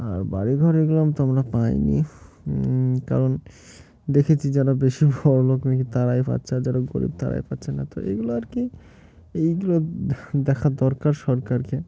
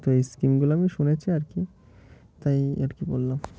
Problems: constant background noise